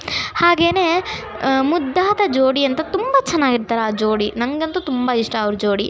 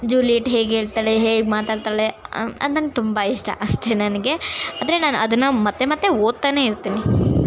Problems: constant background noise, continuous background conversations